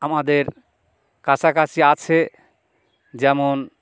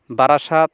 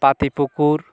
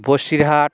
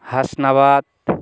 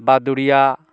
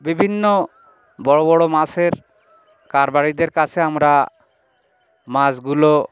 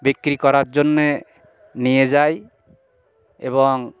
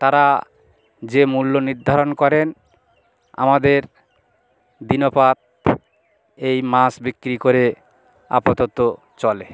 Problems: background sounds at intervals, continuous background conversations